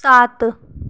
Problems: none marked